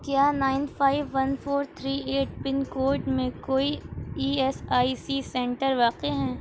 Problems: background sounds at intervals